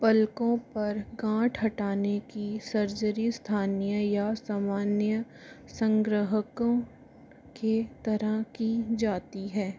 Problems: none marked